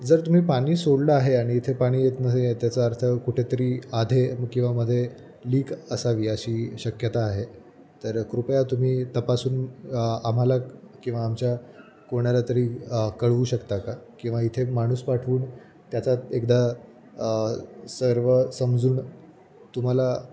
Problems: background sounds at intervals